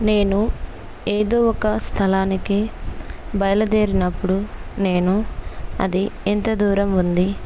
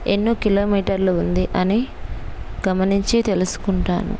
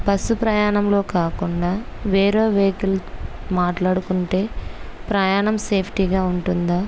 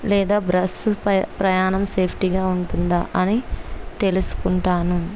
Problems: none marked